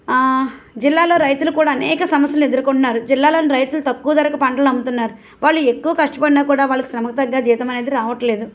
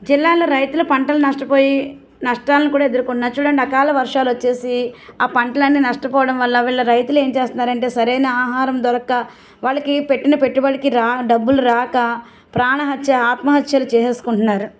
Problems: none marked